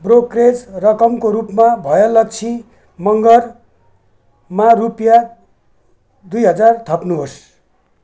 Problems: background sounds at intervals